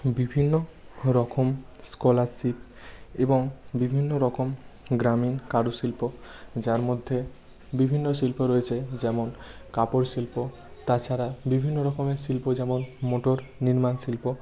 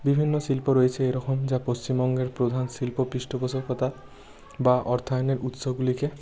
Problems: none marked